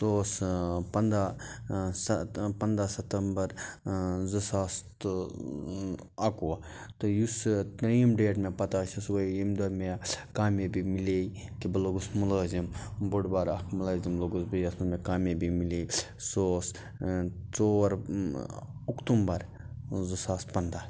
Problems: background sounds at intervals